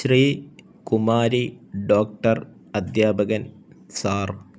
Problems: none marked